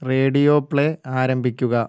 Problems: low volume